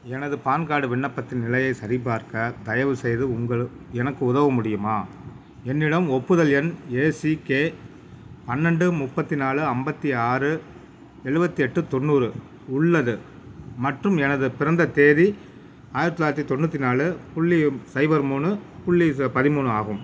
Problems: none marked